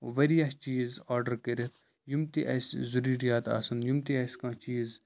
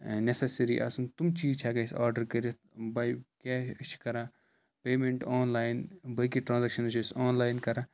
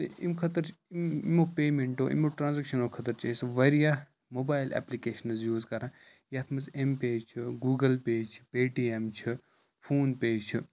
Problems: constant background noise